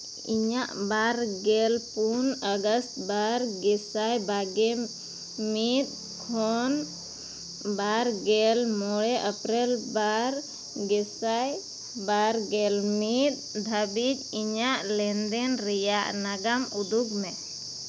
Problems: constant background noise